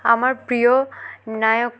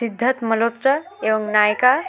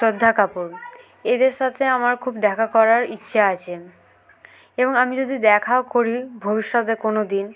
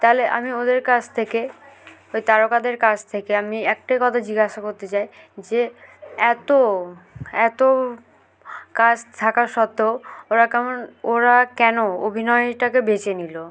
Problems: none marked